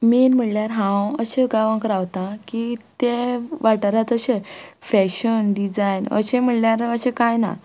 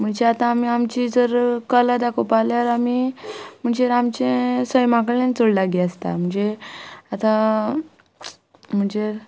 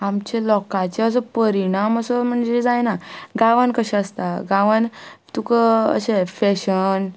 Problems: constant background noise